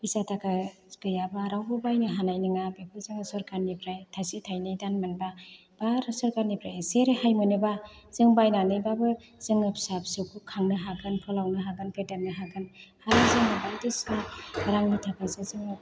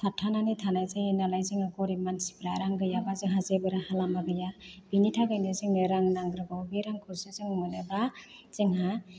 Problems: constant background noise